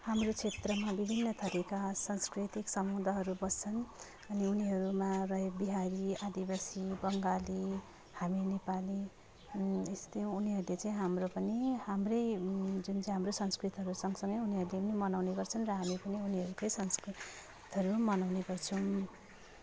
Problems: none marked